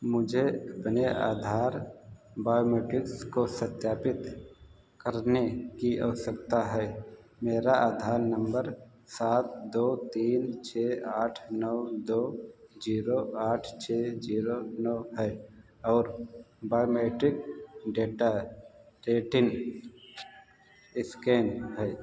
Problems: background sounds at intervals, echo